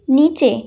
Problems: continuous background conversations